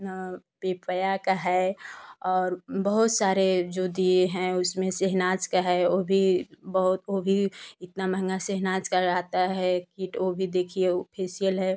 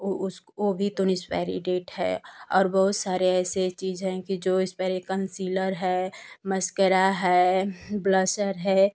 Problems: constant background noise